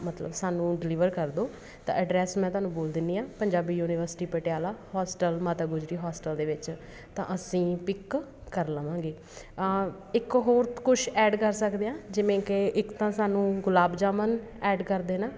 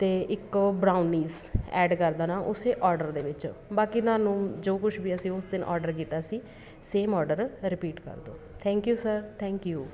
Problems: constant background noise